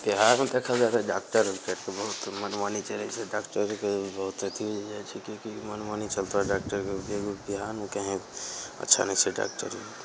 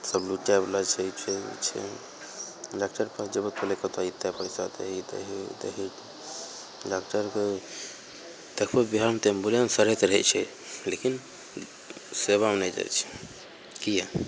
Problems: none marked